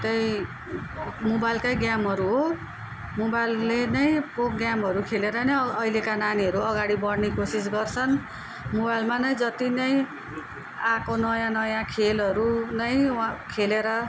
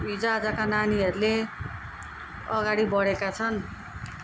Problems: constant background noise